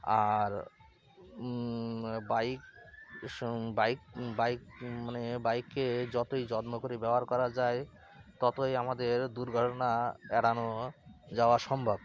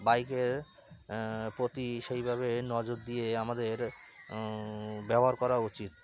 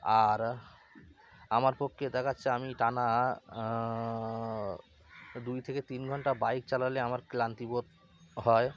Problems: constant background noise, continuous background conversations